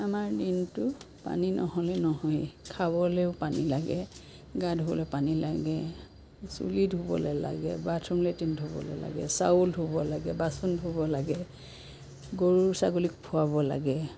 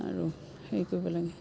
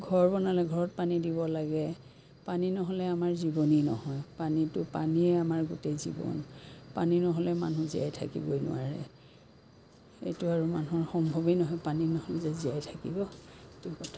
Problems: constant background noise